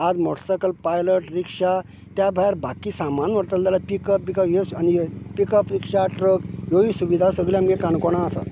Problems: none marked